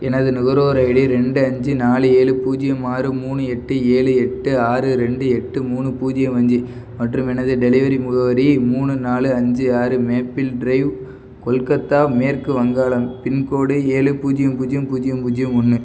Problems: background sounds at intervals